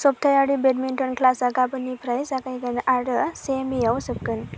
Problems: constant background noise